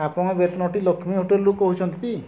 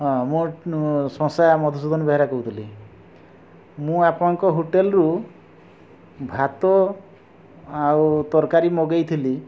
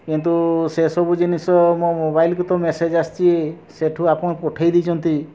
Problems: constant background noise